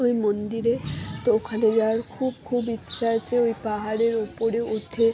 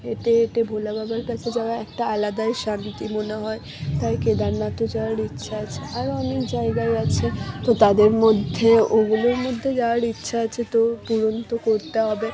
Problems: background sounds at intervals, background conversations at intervals